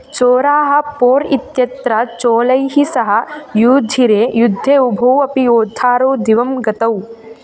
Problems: background sounds at intervals